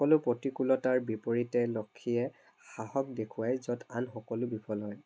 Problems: none marked